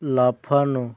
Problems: background sounds at intervals, background conversations at intervals